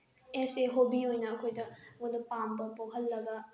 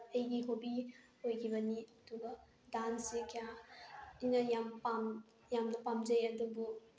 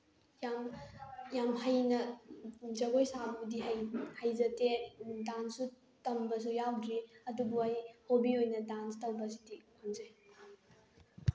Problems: background sounds at intervals